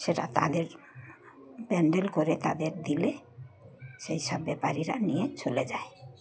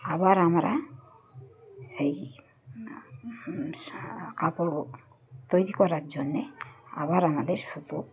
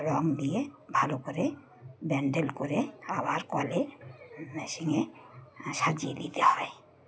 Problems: background sounds at intervals, background conversations at intervals